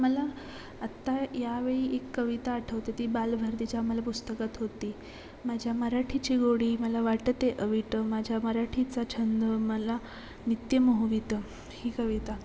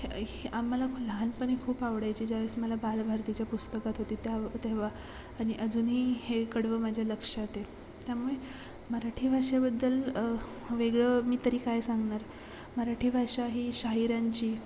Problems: constant background noise, background conversations at intervals